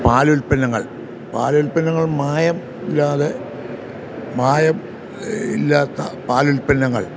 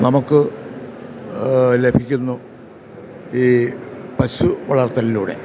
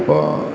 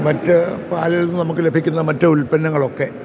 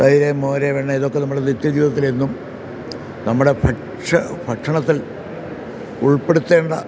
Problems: none marked